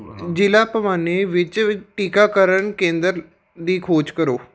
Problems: background conversations at intervals